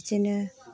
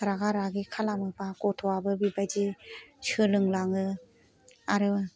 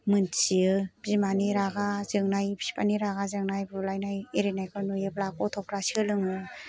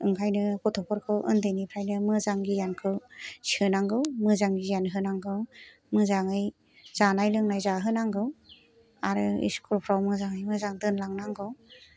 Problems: none marked